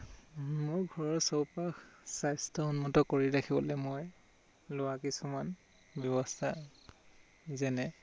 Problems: constant background noise